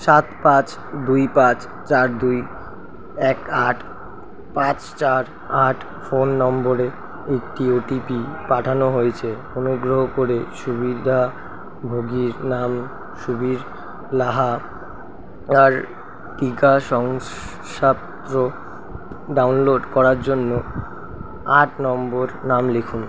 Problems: constant background noise